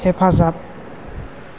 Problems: constant background noise